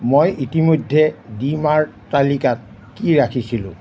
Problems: none marked